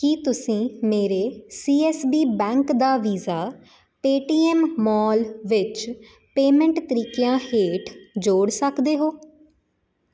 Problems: none marked